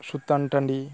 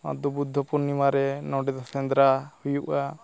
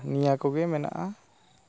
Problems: background sounds at intervals